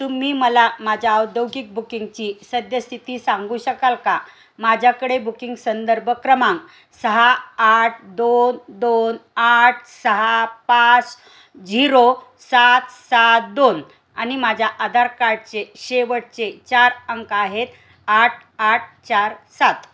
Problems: none marked